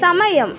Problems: none marked